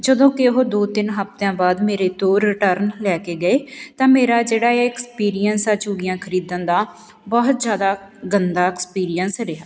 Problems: background sounds at intervals